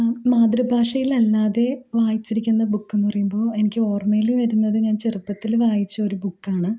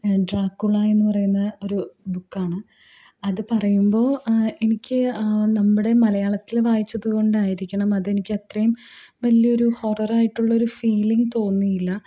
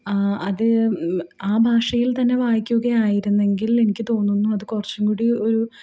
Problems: low volume